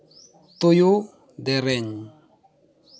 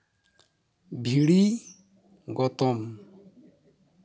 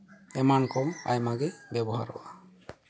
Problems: background sounds at intervals, background conversations at intervals